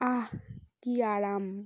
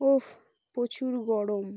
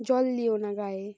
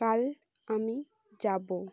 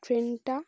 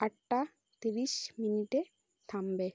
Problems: none marked